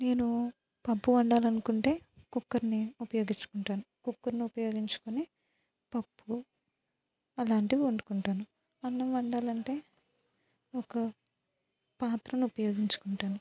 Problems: low volume